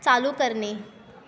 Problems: constant background noise, continuous background conversations